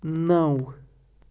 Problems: background sounds at intervals